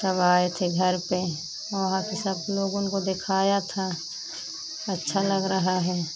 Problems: constant background noise